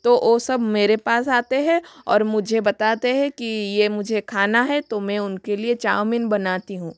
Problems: constant background noise